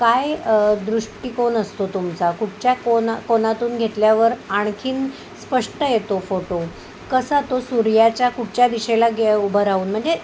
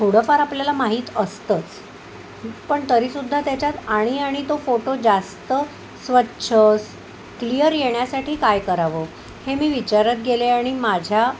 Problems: none marked